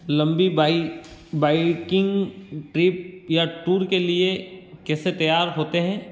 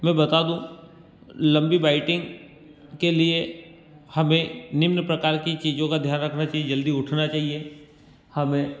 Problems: constant background noise